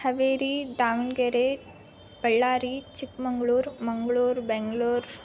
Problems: constant background noise